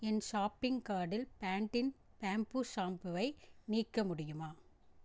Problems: none marked